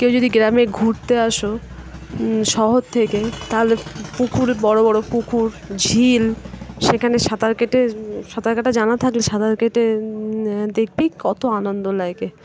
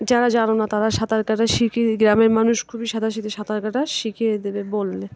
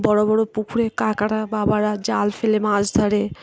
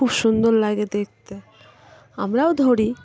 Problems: constant background noise, continuous background conversations